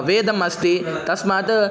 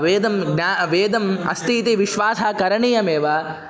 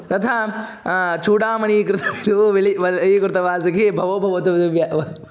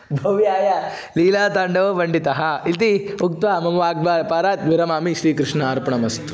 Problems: background conversations at intervals